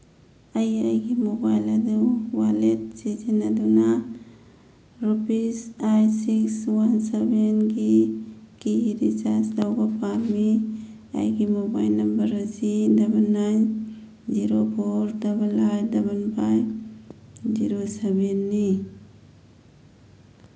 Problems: background sounds at intervals